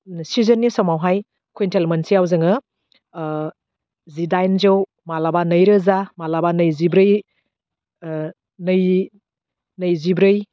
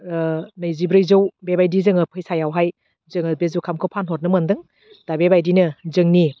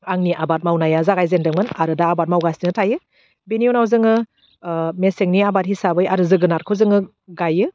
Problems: none marked